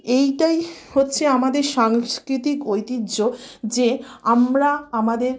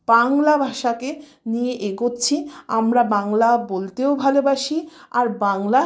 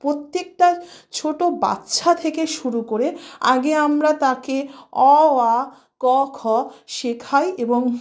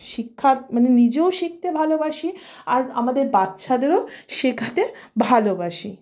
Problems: background sounds at intervals